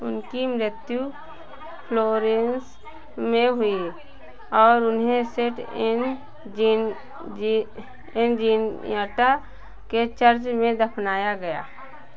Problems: none marked